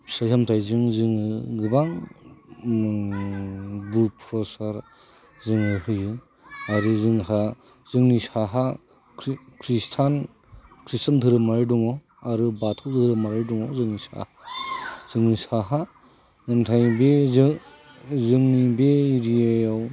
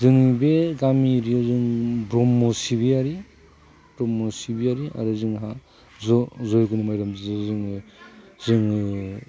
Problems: constant background noise